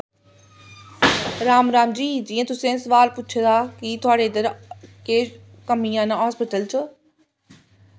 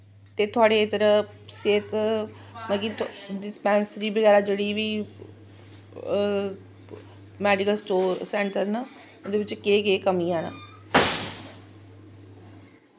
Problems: constant background noise